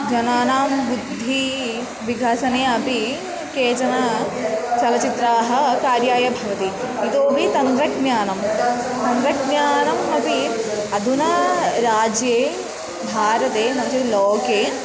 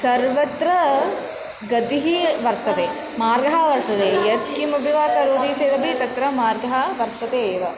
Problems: background sounds at intervals